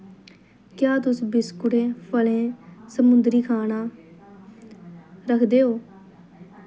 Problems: constant background noise